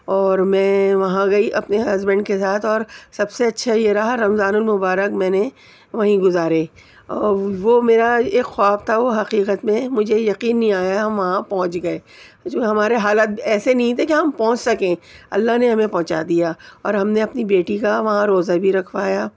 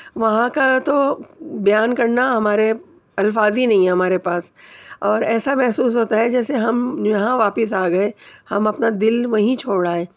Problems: none marked